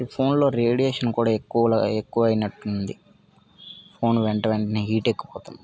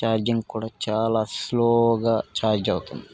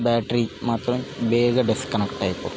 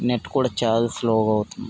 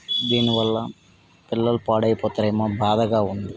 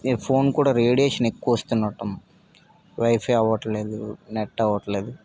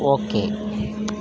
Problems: background sounds at intervals